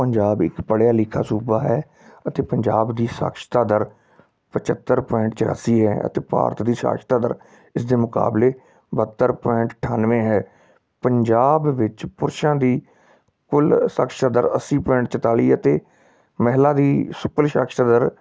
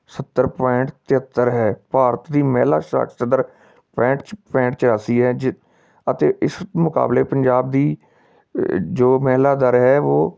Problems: background sounds at intervals